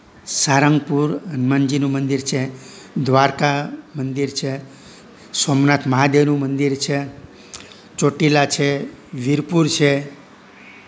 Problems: none marked